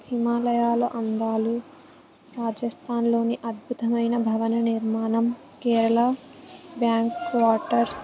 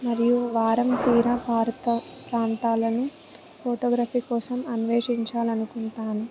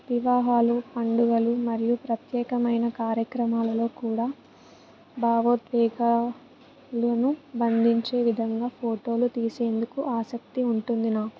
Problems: background sounds at intervals, background conversations at intervals